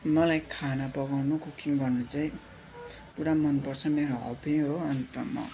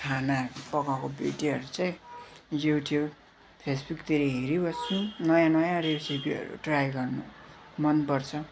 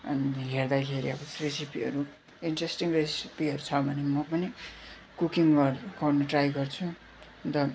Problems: constant background noise